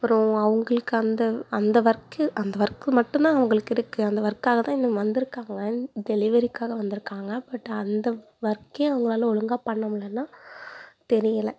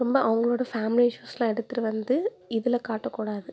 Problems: background sounds at intervals